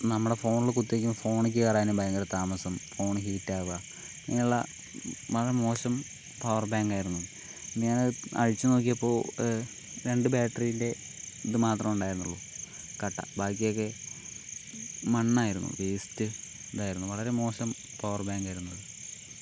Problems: none marked